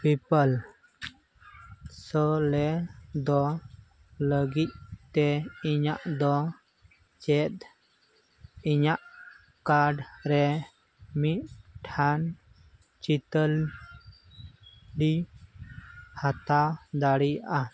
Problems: constant background noise